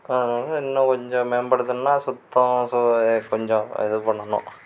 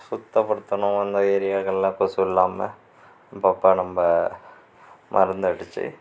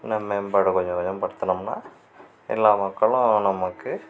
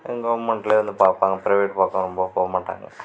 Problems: background sounds at intervals